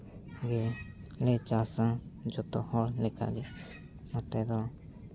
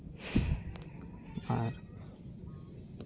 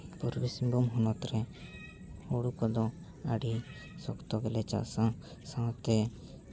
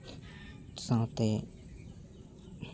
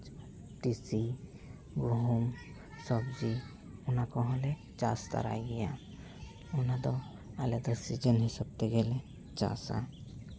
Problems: background sounds at intervals, background conversations at intervals